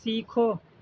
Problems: low volume